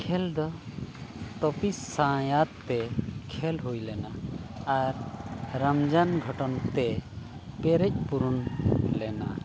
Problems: none marked